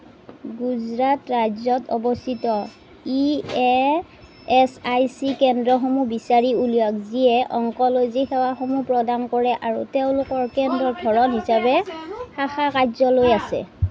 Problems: background conversations at intervals